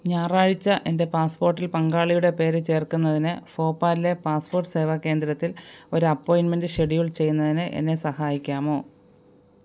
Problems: none marked